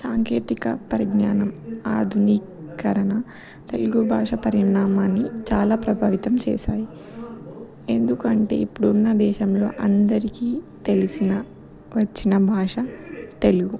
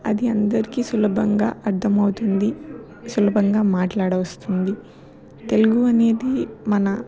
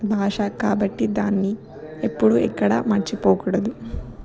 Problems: continuous background conversations